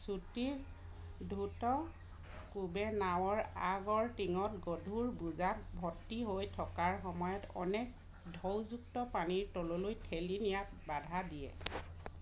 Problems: background sounds at intervals